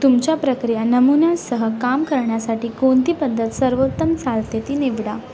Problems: constant background noise, continuous background conversations